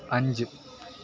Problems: constant background noise